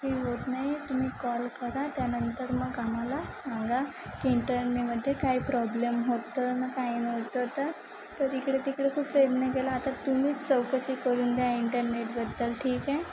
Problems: constant background noise, continuous background conversations